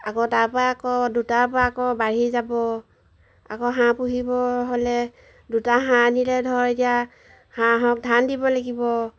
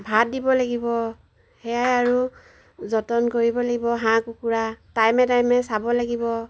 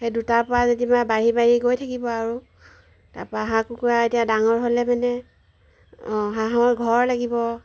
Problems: background sounds at intervals